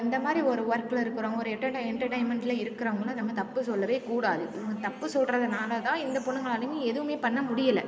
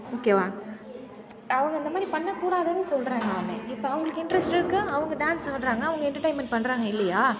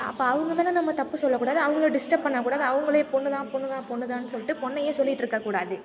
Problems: constant background noise